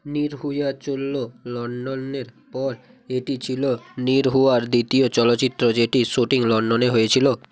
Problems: constant background noise